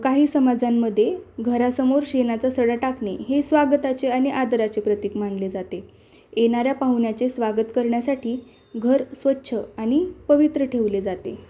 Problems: none marked